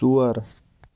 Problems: background sounds at intervals